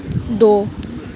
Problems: none marked